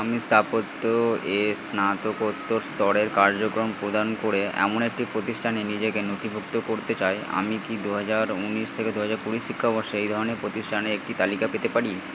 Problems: constant background noise